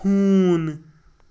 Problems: constant background noise